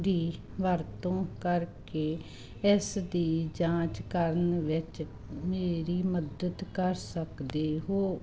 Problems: none marked